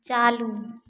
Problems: echo